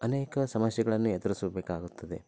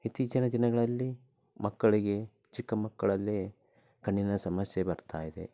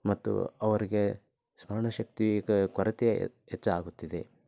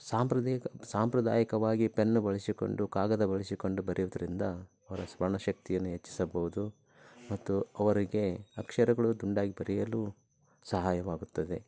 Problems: low volume